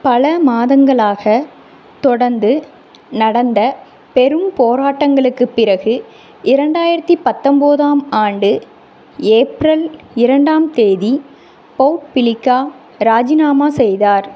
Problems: constant background noise